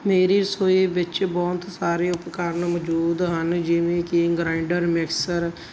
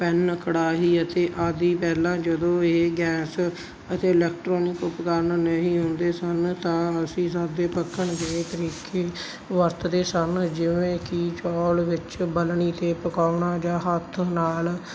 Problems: constant background noise